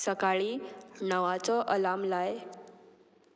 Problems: none marked